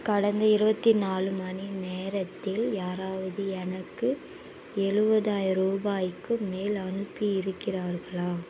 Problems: constant background noise